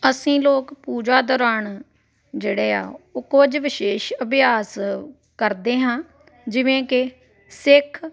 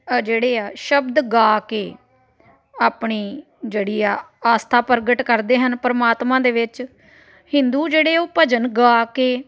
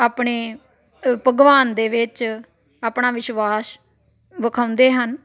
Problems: continuous background conversations